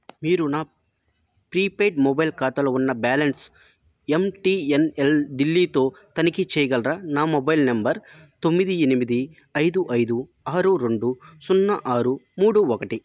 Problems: none marked